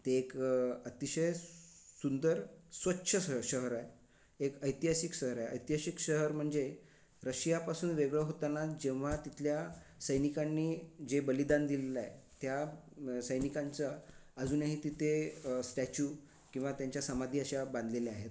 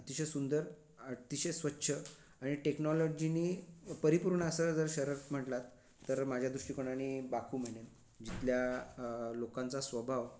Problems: background sounds at intervals